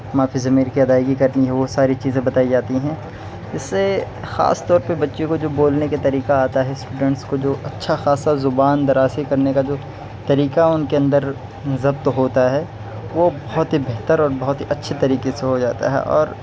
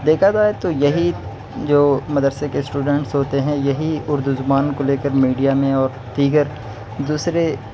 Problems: constant background noise